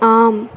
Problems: constant background noise